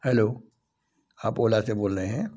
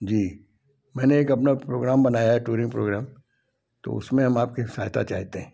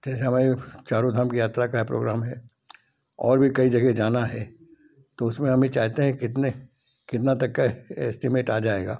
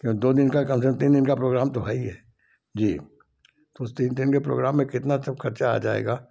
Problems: none marked